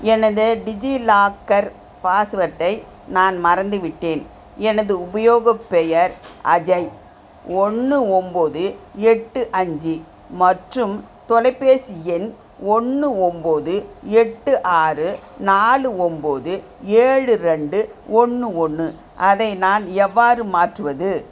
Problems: none marked